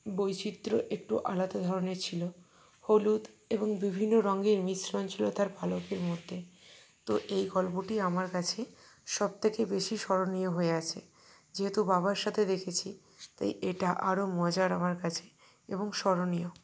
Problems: none marked